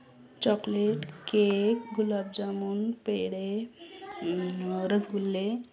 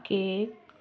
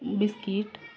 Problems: constant background noise, continuous background conversations